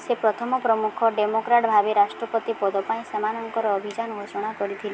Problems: constant background noise